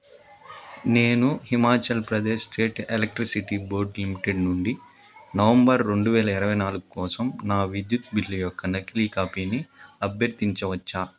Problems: background conversations at intervals